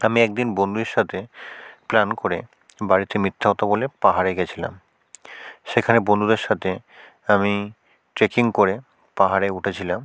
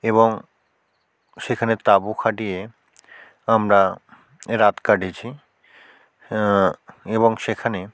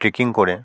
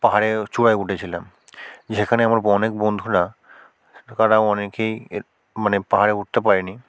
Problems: none marked